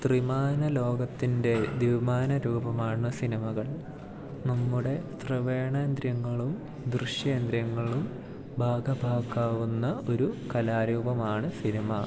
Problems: low volume